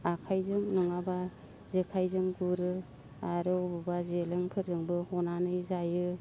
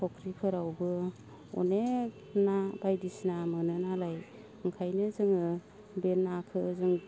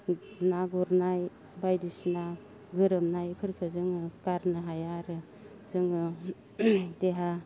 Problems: constant background noise